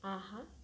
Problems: none marked